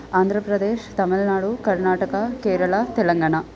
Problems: constant background noise, continuous background conversations